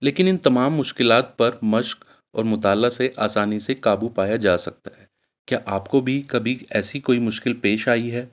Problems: none marked